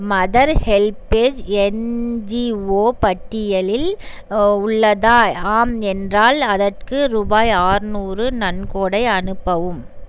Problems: none marked